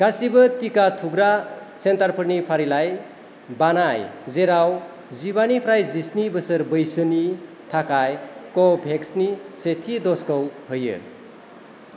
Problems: none marked